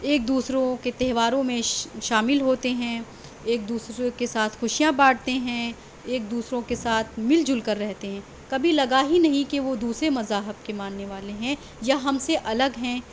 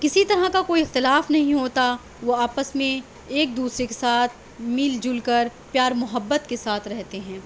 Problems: constant background noise